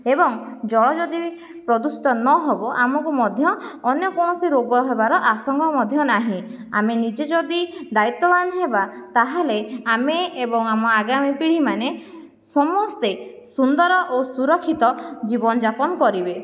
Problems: none marked